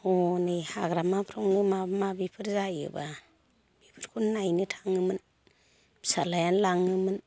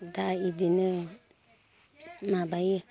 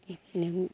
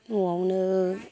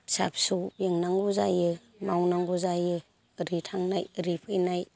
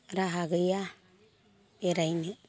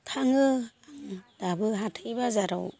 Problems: constant background noise